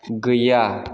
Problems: none marked